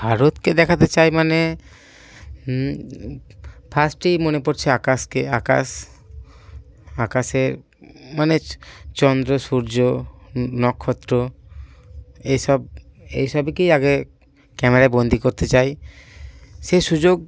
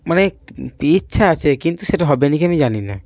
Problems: constant background noise, background conversations at intervals